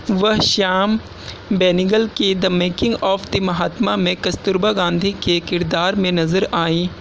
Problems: constant background noise